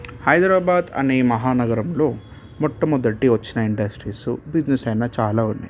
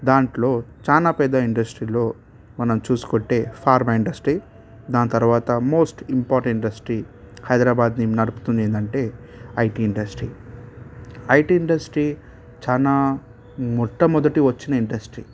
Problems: background sounds at intervals